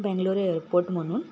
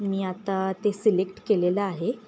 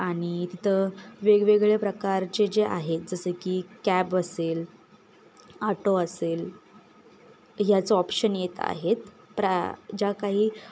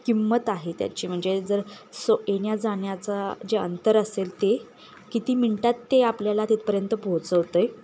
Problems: none marked